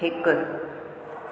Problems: constant background noise, echo